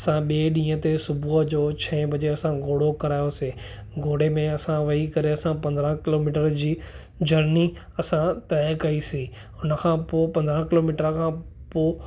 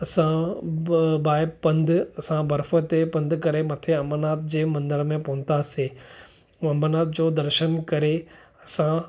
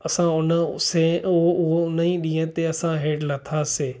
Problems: none marked